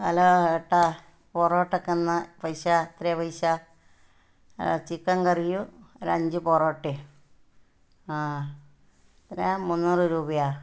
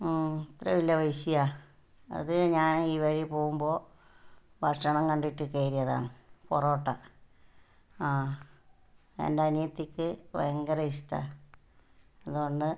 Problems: low volume